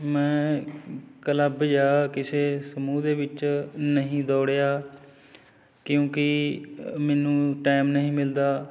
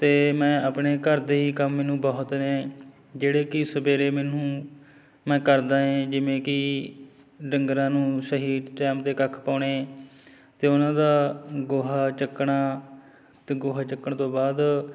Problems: constant background noise, background conversations at intervals